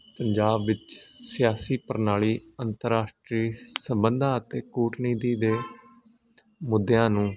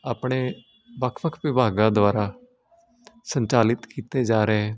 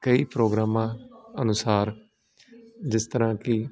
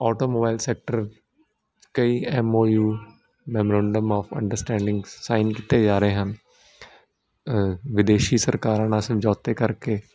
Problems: none marked